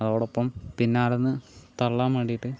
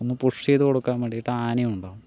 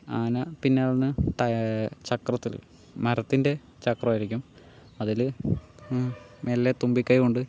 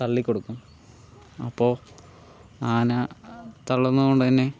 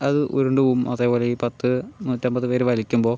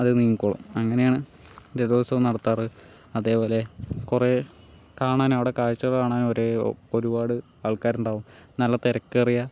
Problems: low volume